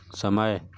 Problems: none marked